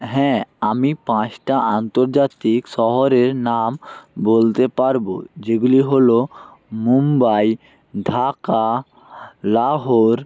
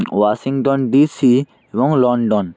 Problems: none marked